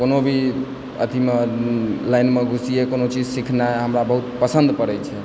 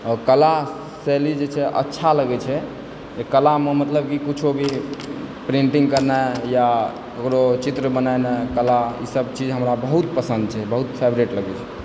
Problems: constant background noise